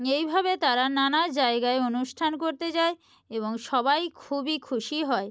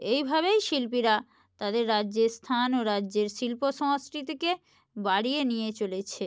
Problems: none marked